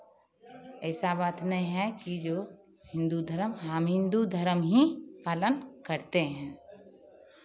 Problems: constant background noise